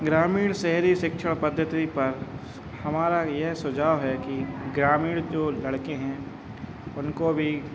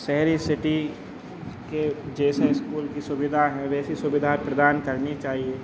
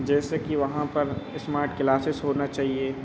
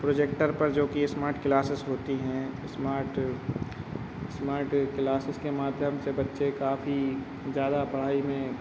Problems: none marked